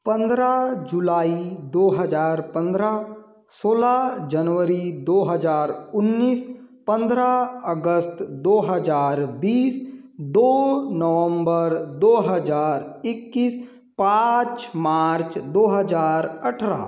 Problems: constant background noise